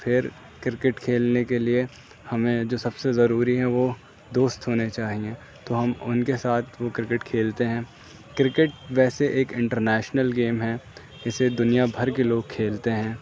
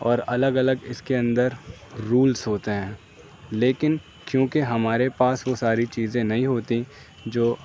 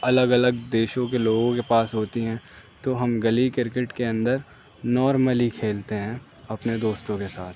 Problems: none marked